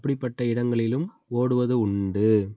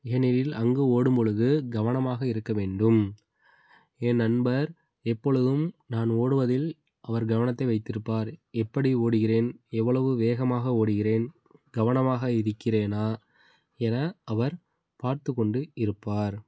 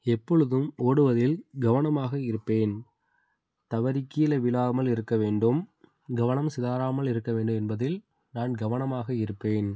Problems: background sounds at intervals